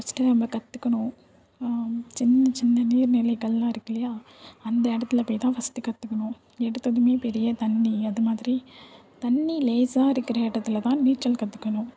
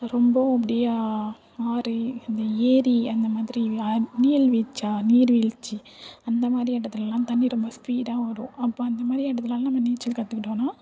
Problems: none marked